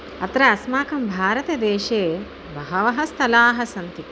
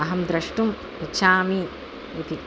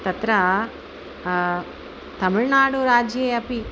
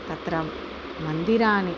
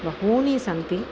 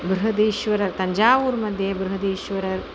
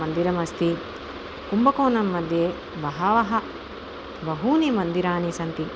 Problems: constant background noise